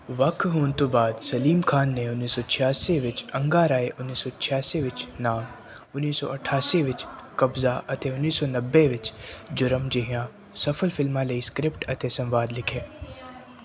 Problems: continuous background conversations